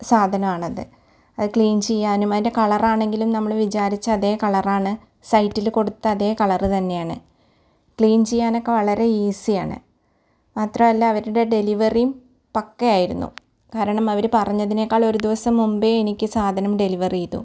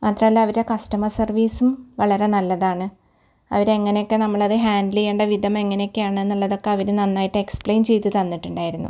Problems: none marked